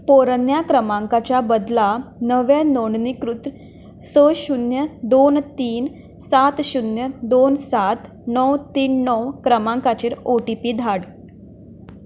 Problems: none marked